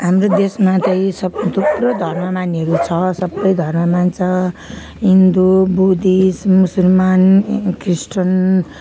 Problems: none marked